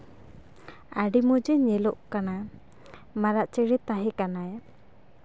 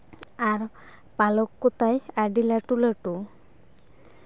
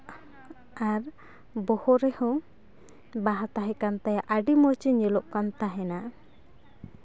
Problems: background sounds at intervals, background conversations at intervals